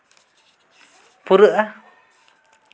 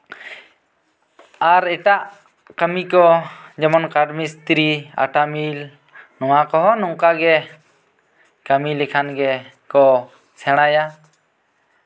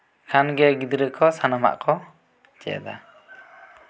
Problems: background sounds at intervals